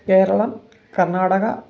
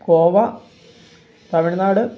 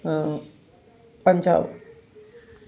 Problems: background sounds at intervals